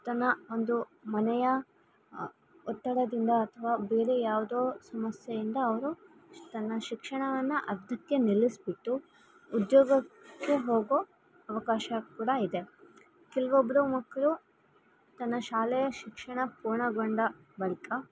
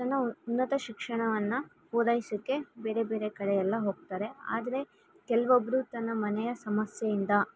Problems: background sounds at intervals